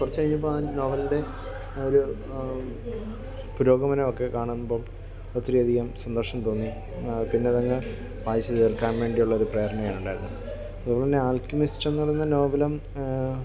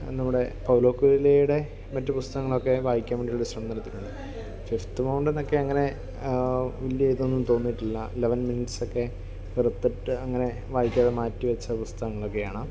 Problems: none marked